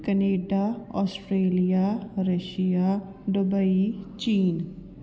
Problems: none marked